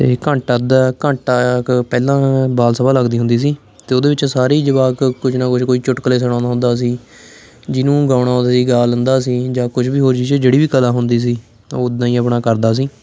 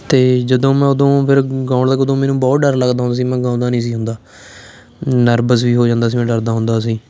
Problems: constant background noise